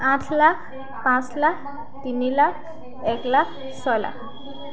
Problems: constant background noise